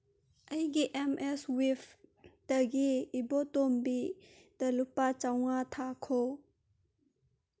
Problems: none marked